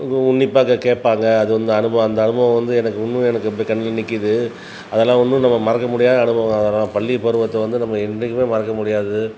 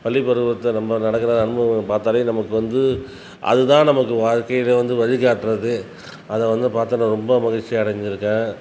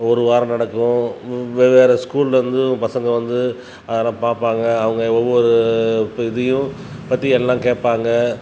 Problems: background sounds at intervals